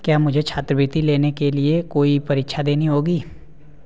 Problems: background sounds at intervals